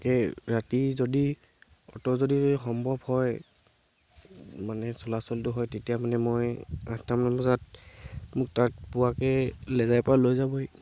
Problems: constant background noise, background conversations at intervals